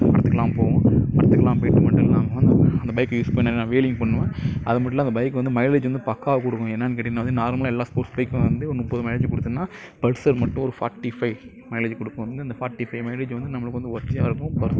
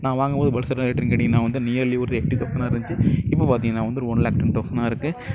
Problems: constant background noise